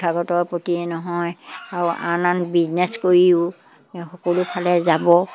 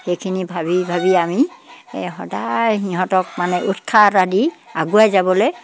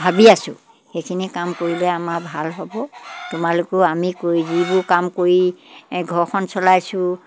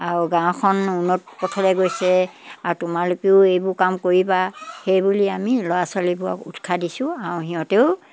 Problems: background sounds at intervals